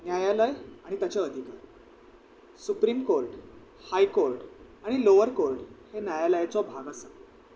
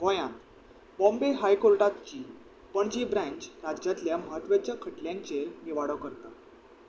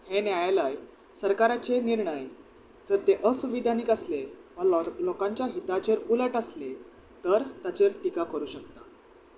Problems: constant background noise